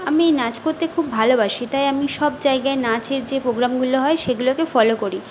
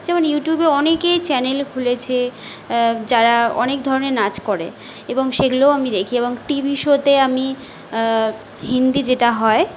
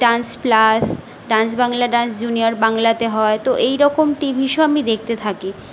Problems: constant background noise